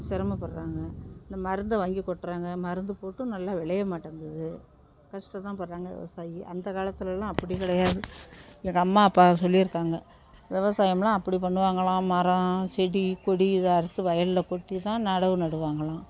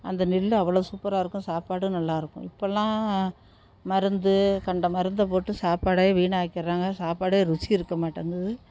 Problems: low volume